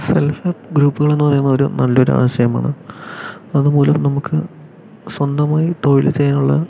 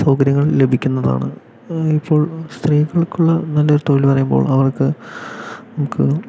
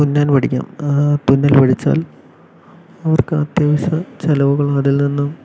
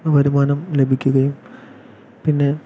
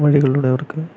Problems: low volume